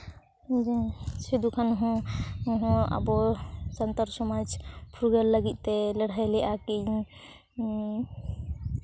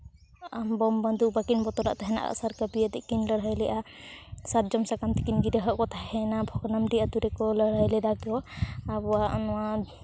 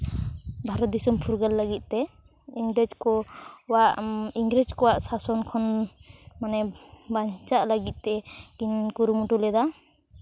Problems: none marked